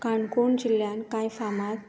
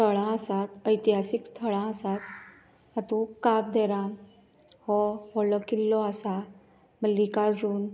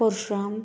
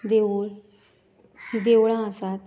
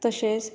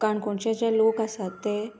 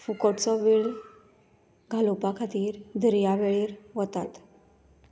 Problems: background sounds at intervals